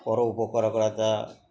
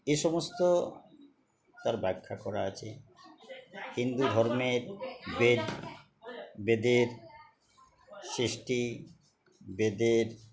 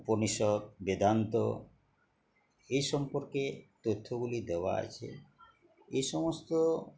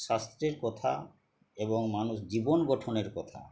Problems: constant background noise, continuous background conversations